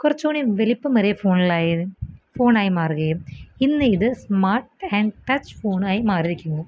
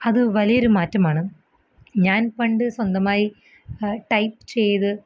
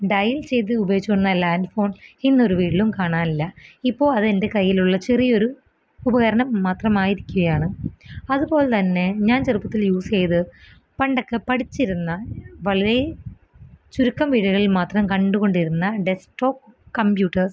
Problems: background sounds at intervals